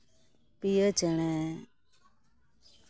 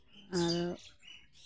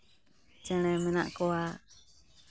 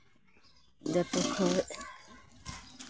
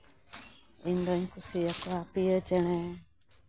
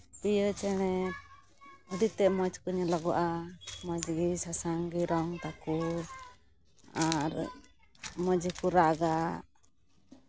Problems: background sounds at intervals, background conversations at intervals